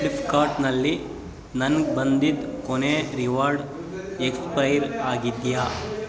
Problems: constant background noise